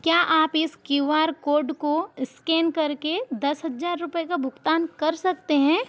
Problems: none marked